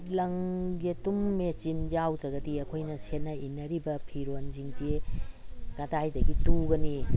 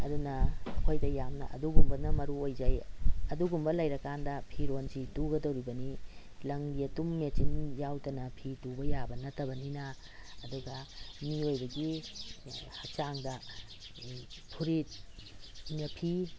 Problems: background sounds at intervals